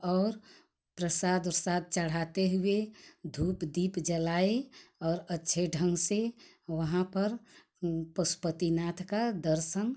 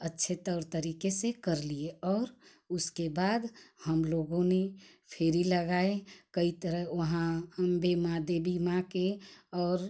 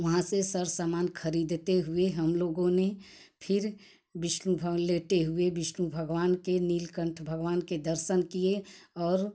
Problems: none marked